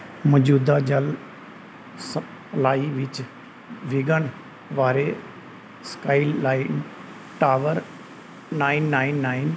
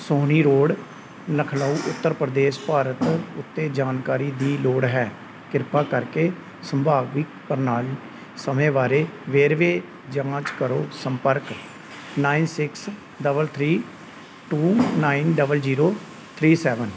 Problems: constant background noise